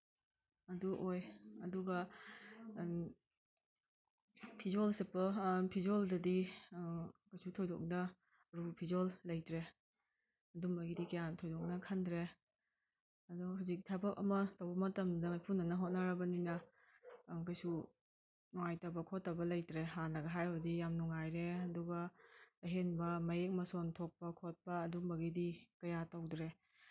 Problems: background sounds at intervals